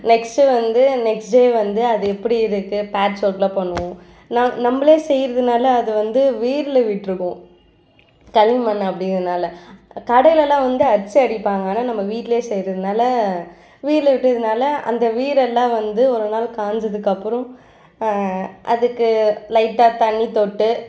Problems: none marked